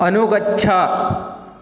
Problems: background sounds at intervals